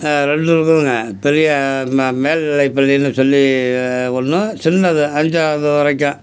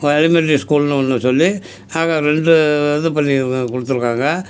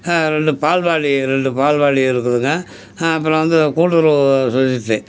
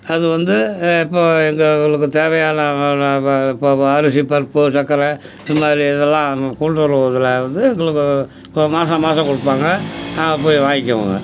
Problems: background sounds at intervals